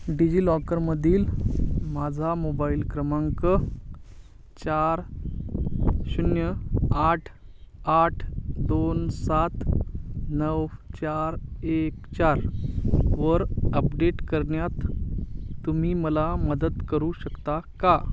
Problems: constant background noise